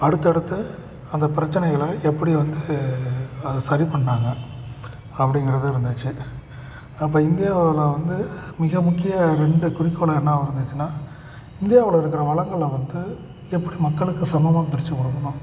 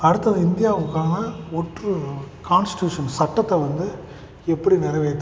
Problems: background sounds at intervals